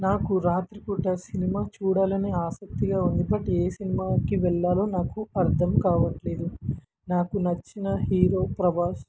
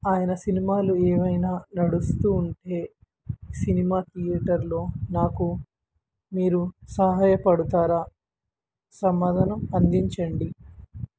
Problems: background sounds at intervals